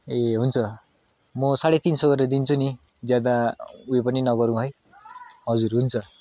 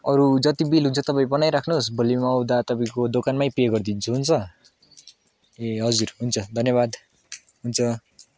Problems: constant background noise